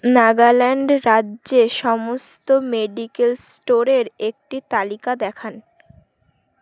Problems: background sounds at intervals